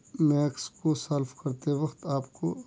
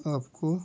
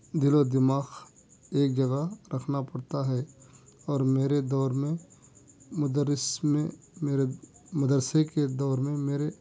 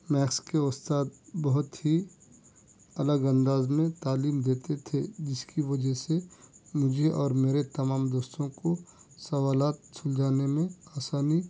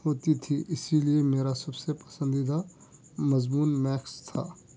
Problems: none marked